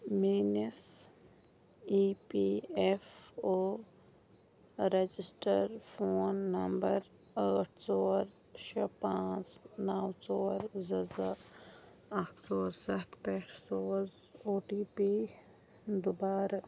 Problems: constant background noise, low volume